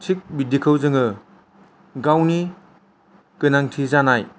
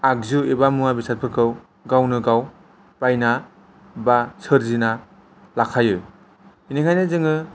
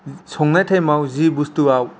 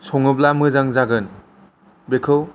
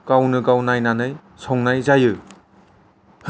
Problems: none marked